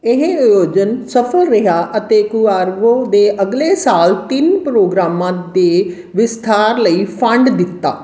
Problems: background sounds at intervals